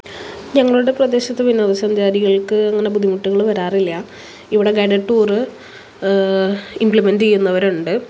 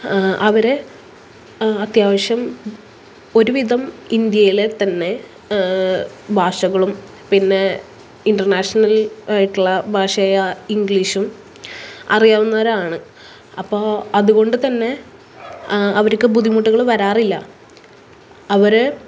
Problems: background sounds at intervals